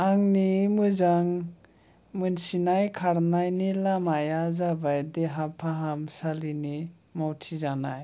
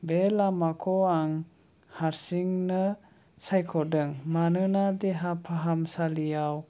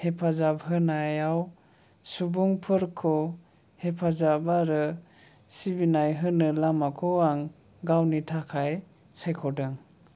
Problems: low volume